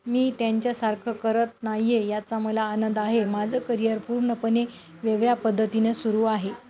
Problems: constant background noise, background conversations at intervals